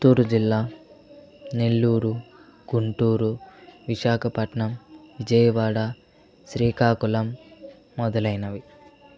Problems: continuous background conversations